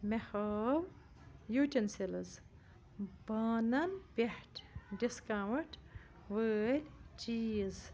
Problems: low volume